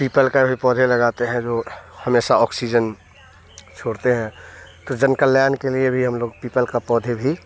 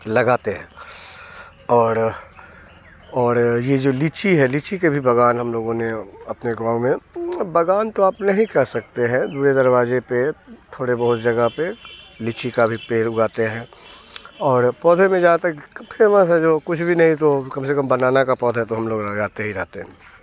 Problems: none marked